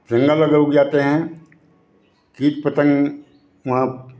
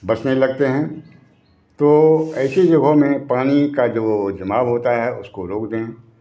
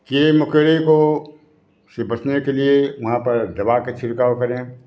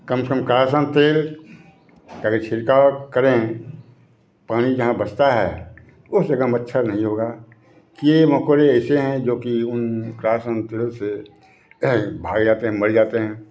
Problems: background sounds at intervals